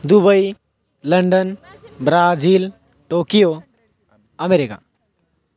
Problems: background sounds at intervals, background conversations at intervals